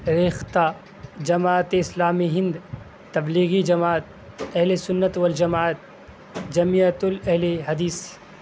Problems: constant background noise